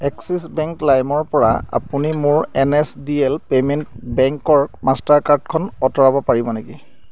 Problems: none marked